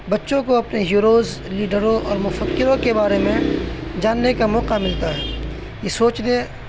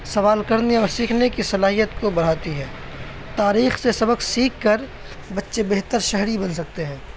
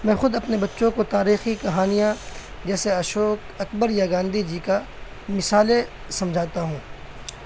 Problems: constant background noise